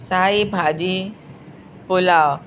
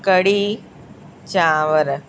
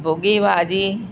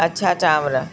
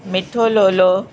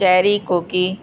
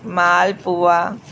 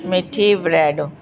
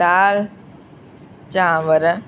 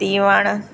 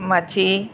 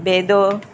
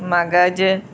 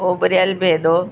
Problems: constant background noise